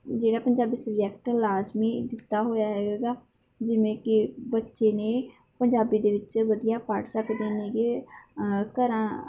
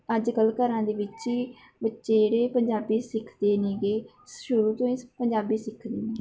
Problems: background conversations at intervals